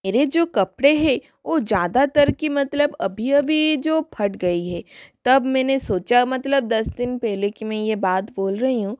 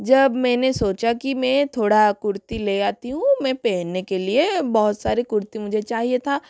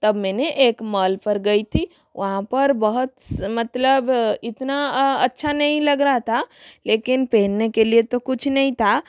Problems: constant background noise